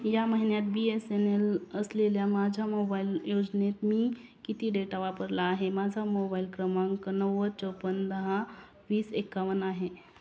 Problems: background sounds at intervals, background conversations at intervals